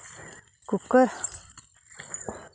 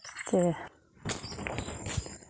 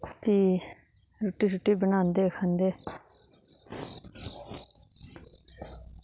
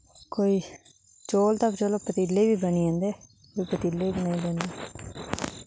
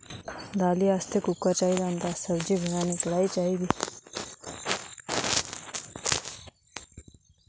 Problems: constant background noise